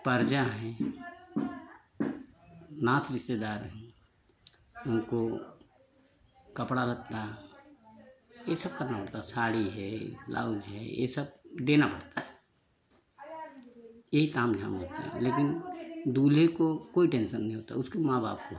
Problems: constant background noise